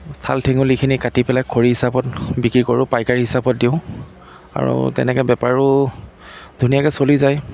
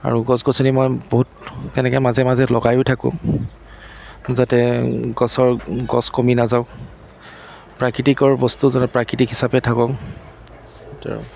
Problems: constant background noise